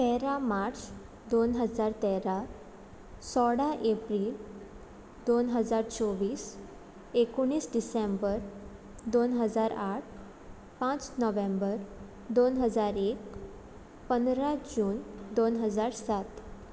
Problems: none marked